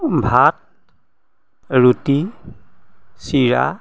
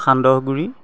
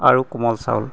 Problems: none marked